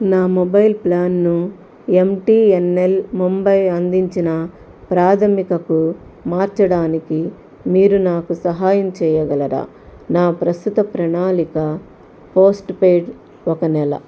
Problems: none marked